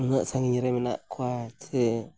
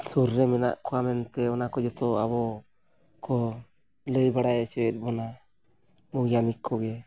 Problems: none marked